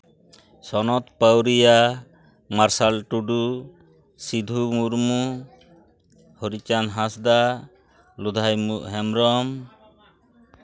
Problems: background sounds at intervals